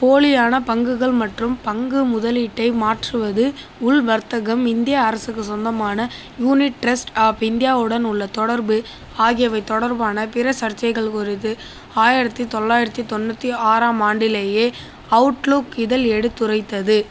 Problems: constant background noise